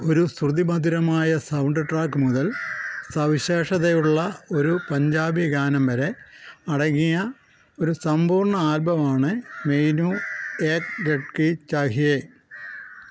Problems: background sounds at intervals